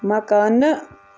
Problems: constant background noise